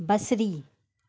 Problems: none marked